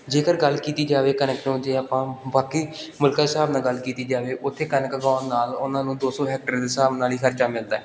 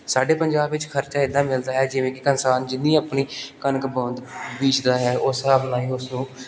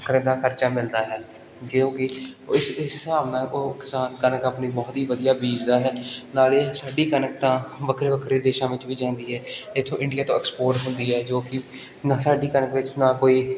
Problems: none marked